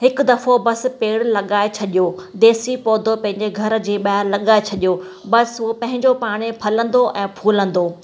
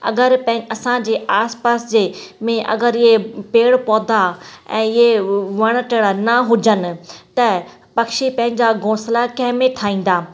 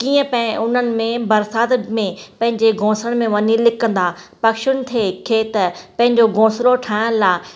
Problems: constant background noise, echo